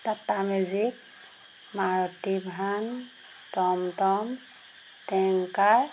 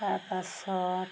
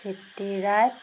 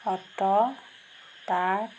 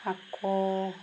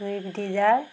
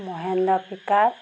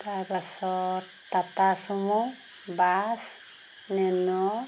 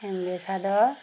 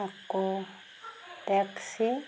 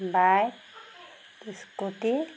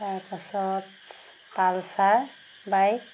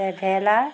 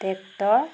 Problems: background sounds at intervals